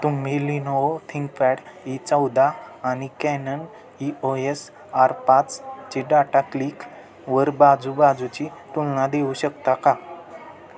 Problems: constant background noise, continuous background conversations